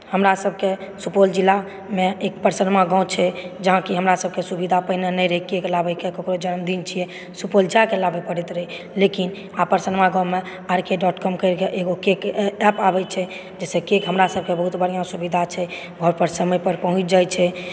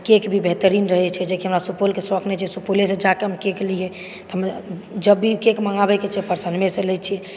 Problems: background sounds at intervals